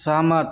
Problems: none marked